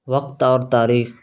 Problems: constant background noise